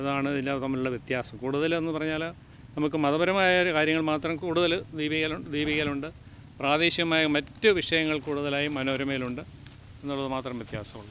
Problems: background sounds at intervals